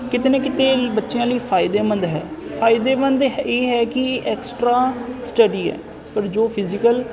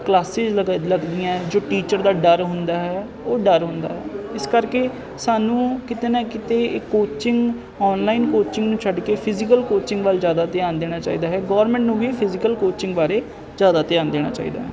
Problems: constant background noise